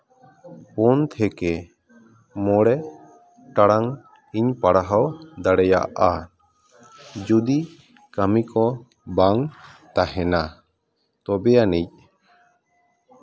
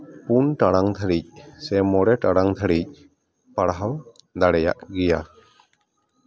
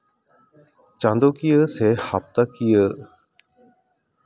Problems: continuous background conversations